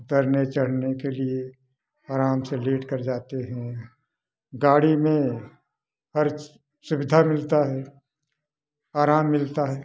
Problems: background sounds at intervals